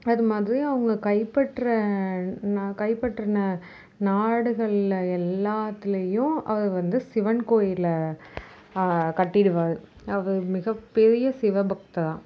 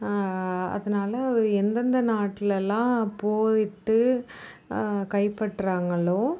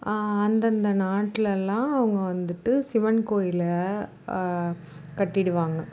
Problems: none marked